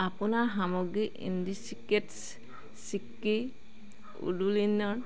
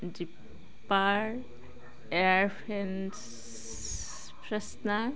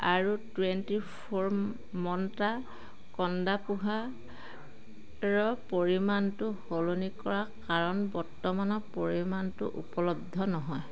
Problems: constant background noise